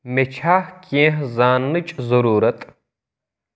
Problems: none marked